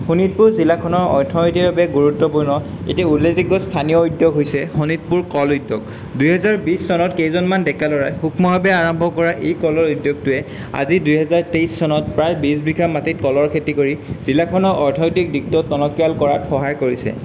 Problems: none marked